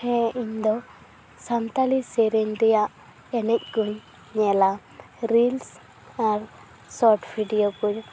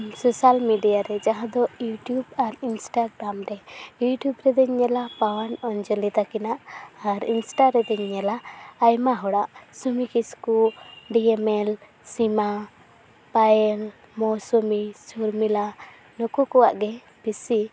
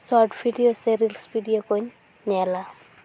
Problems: constant background noise